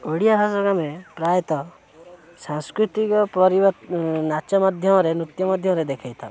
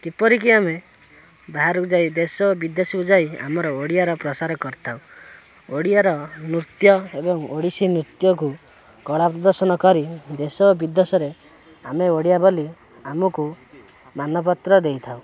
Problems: none marked